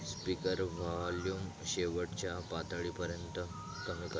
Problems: none marked